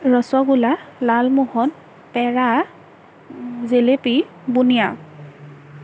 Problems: none marked